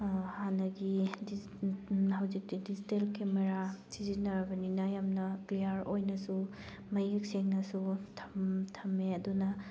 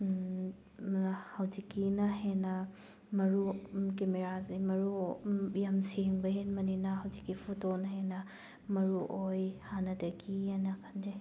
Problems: background sounds at intervals